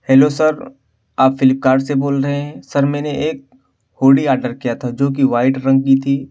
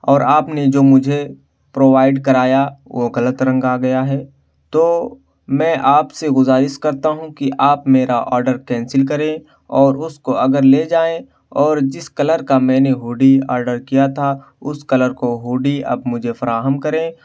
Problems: background sounds at intervals